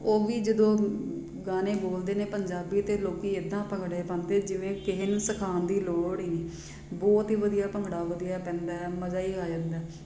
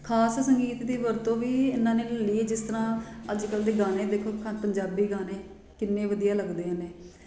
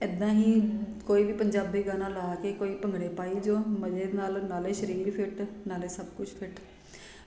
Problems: none marked